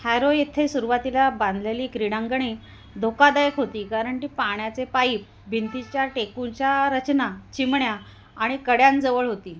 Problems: none marked